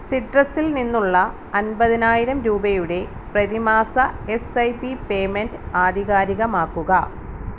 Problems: none marked